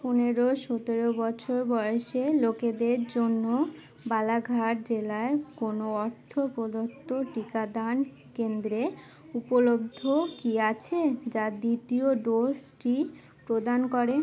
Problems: constant background noise